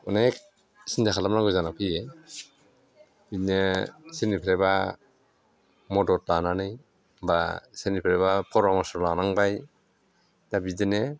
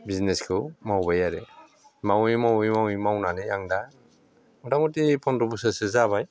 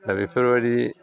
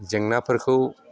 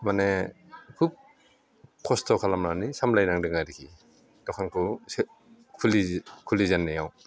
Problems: low volume